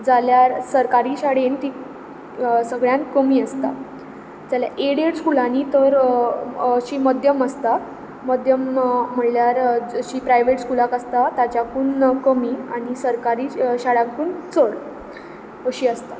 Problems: background sounds at intervals